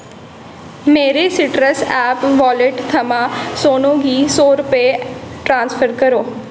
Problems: constant background noise, echo